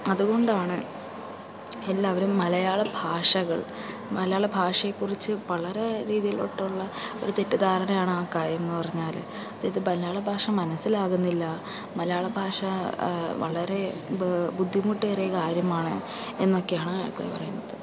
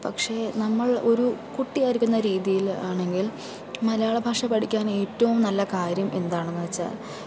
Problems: constant background noise, low volume